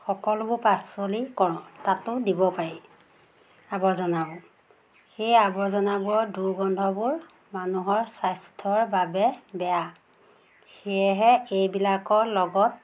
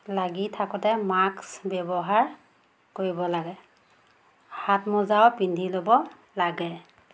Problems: constant background noise